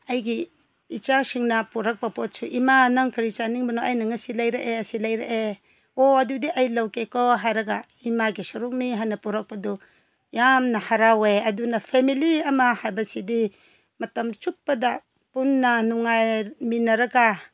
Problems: none marked